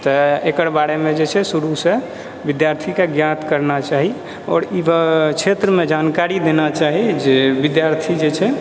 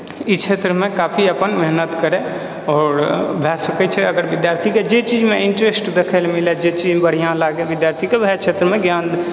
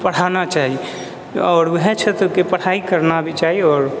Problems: none marked